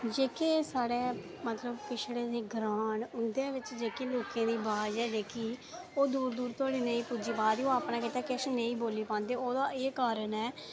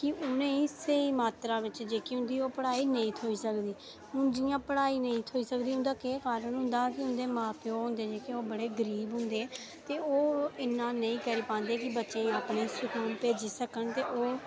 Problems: background sounds at intervals